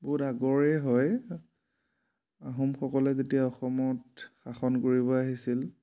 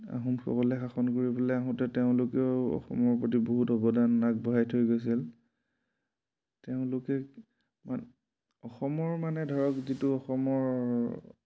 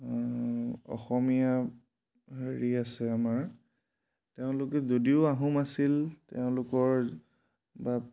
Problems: none marked